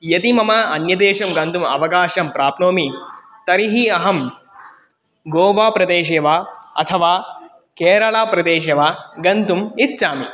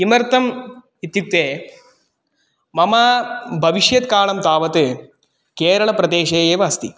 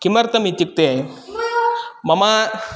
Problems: background sounds at intervals